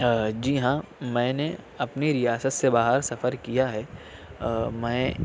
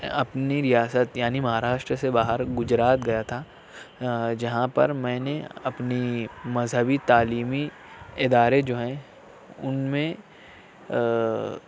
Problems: none marked